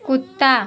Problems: constant background noise